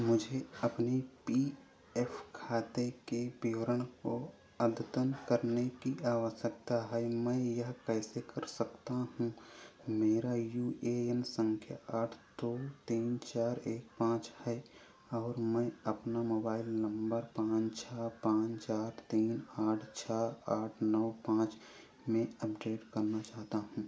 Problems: constant background noise